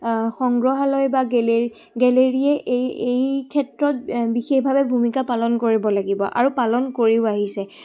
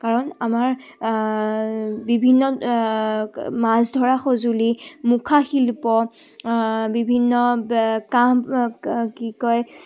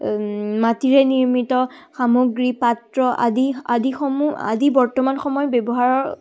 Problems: background sounds at intervals